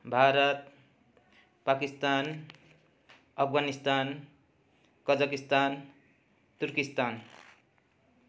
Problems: continuous background conversations